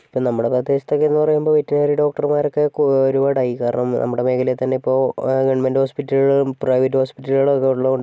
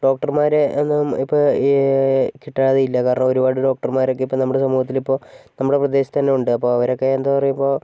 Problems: none marked